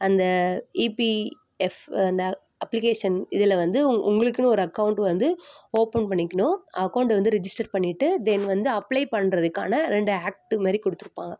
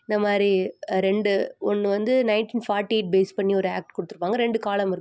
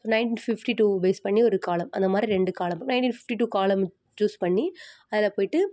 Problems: none marked